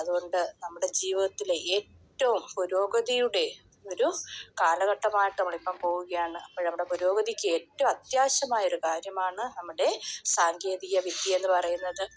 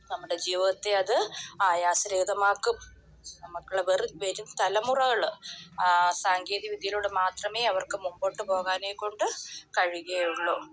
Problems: none marked